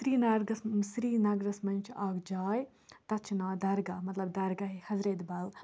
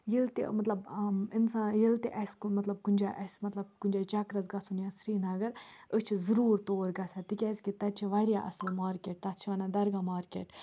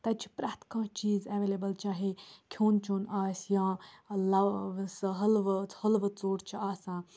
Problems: constant background noise